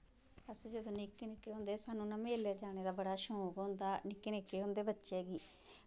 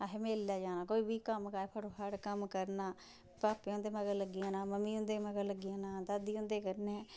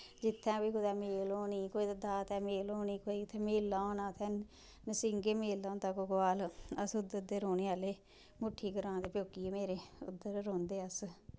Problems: background sounds at intervals